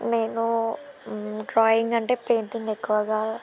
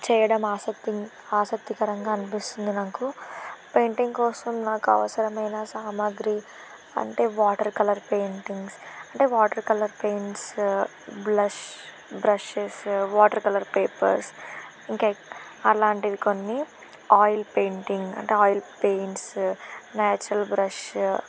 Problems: constant background noise